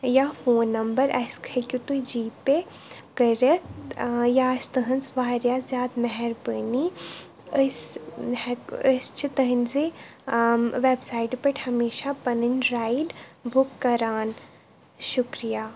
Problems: none marked